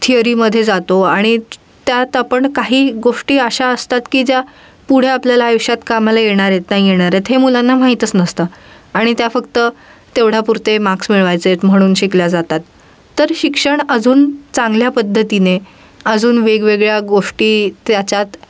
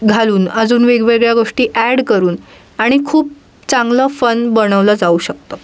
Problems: constant background noise